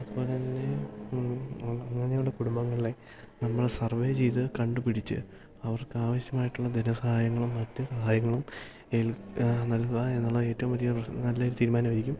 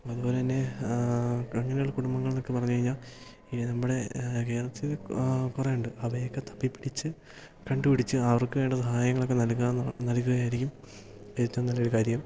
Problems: background sounds at intervals, low volume